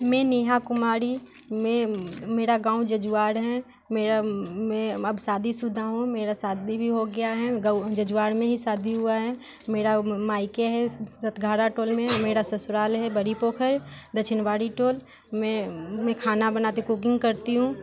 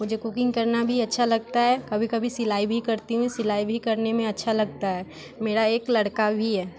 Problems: constant background noise, background conversations at intervals